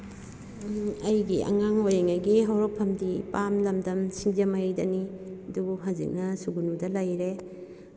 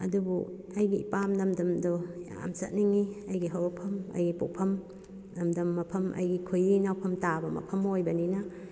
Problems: background sounds at intervals